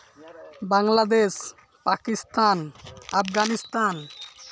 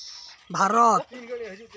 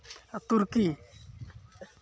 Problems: constant background noise, continuous background conversations